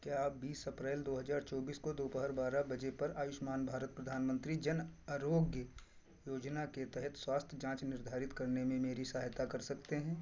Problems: background sounds at intervals